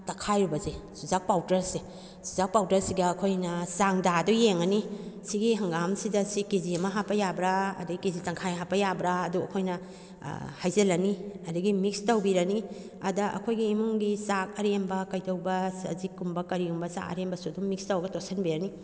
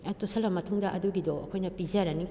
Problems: background conversations at intervals